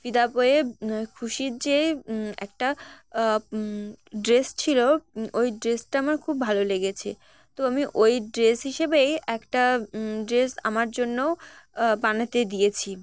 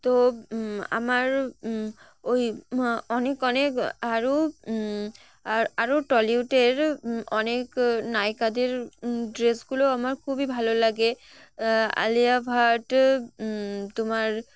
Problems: background sounds at intervals